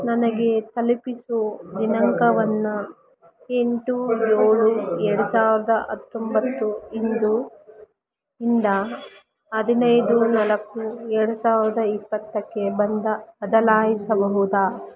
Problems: continuous background conversations